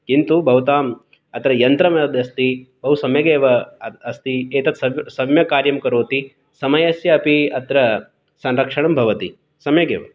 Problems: none marked